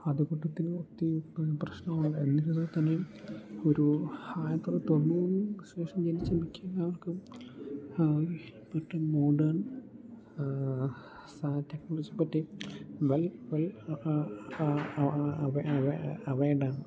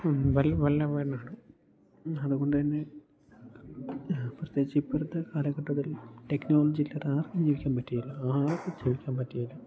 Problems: low volume